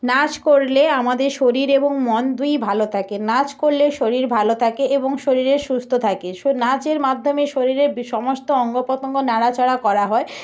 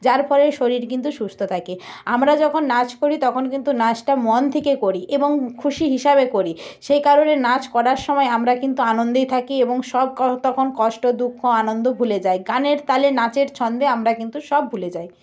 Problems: none marked